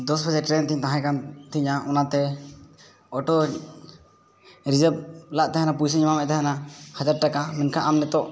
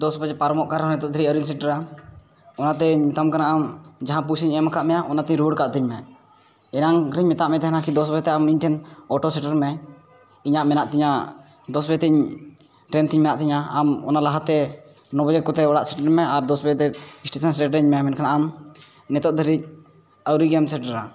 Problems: background sounds at intervals